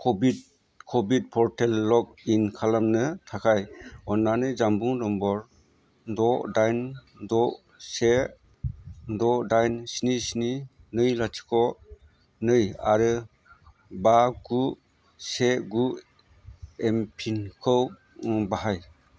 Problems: constant background noise